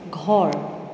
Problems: none marked